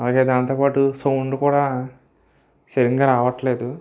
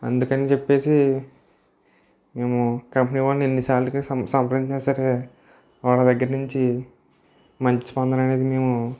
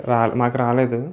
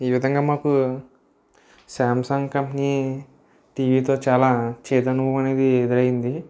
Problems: none marked